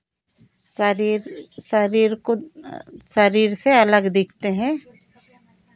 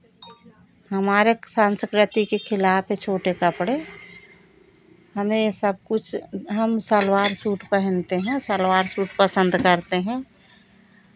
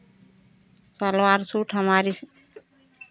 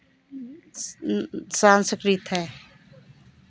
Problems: none marked